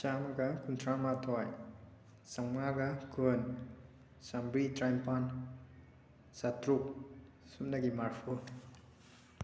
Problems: none marked